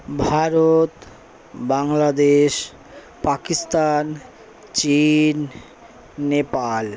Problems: constant background noise, background conversations at intervals